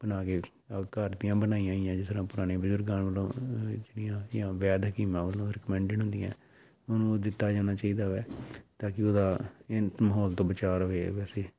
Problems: background sounds at intervals